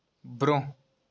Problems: none marked